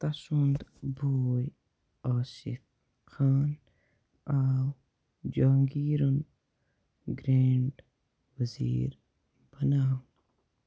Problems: low volume